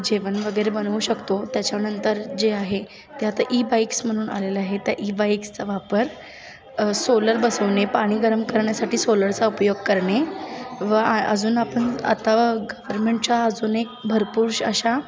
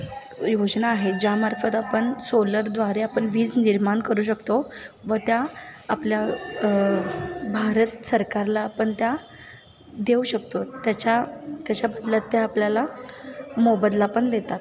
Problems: constant background noise